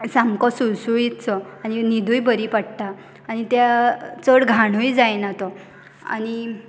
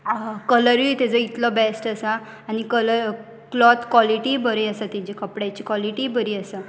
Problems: none marked